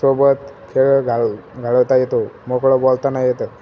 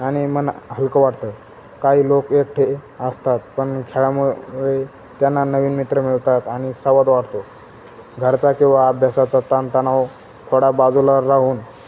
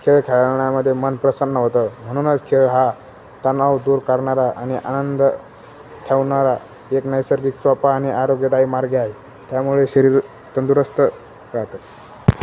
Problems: constant background noise